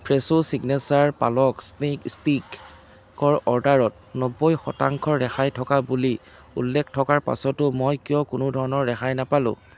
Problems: constant background noise